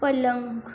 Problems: none marked